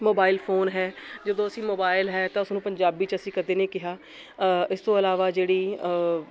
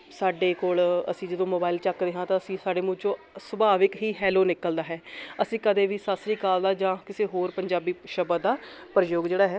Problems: none marked